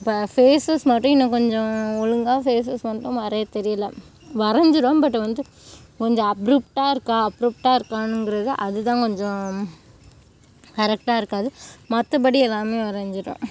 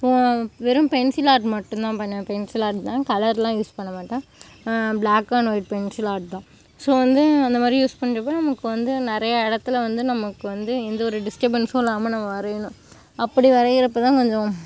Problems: constant background noise